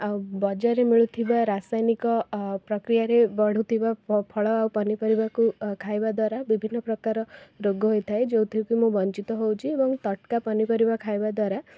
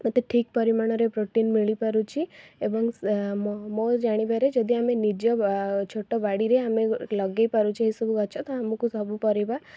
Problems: background sounds at intervals, background conversations at intervals